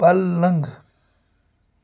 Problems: constant background noise